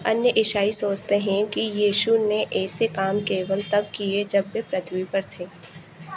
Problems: constant background noise